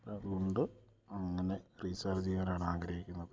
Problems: low volume